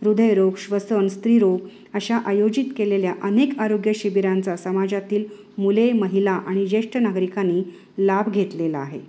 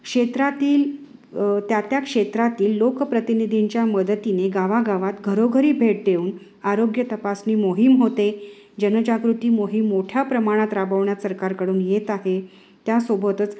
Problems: none marked